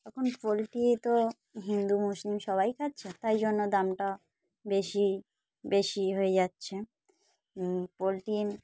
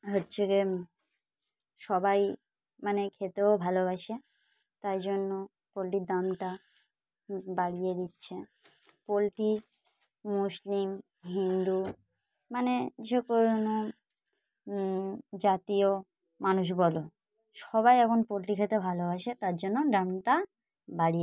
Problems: background sounds at intervals